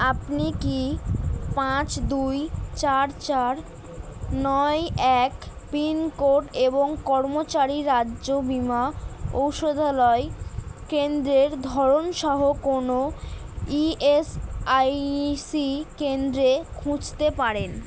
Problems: none marked